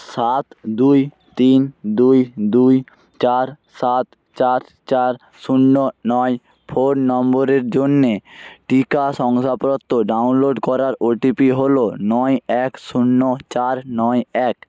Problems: background sounds at intervals